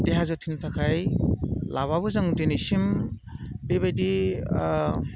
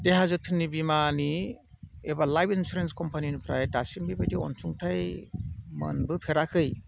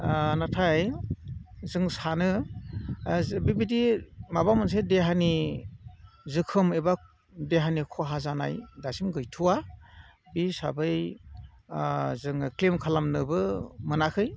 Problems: none marked